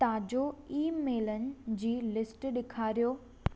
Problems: none marked